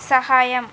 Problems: constant background noise